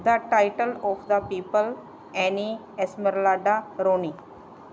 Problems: none marked